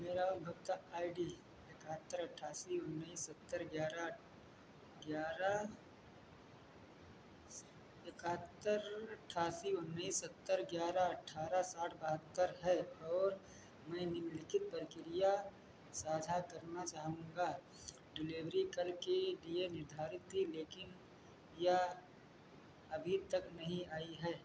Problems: none marked